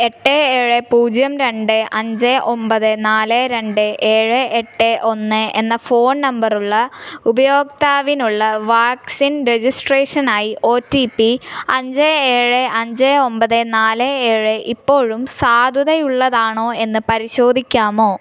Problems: none marked